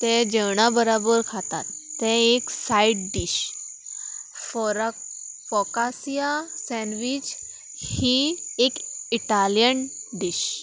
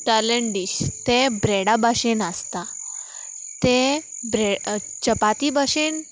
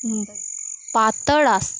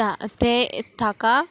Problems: constant background noise